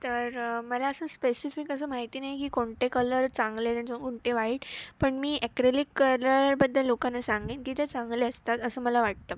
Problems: none marked